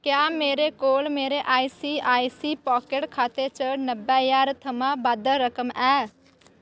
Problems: constant background noise